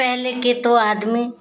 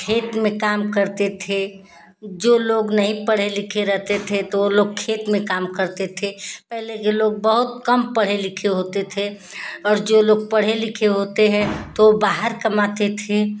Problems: none marked